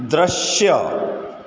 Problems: constant background noise, echo